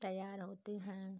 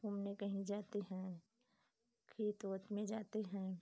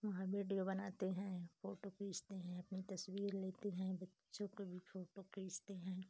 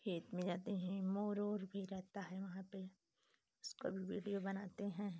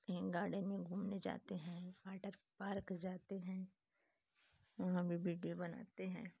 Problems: low volume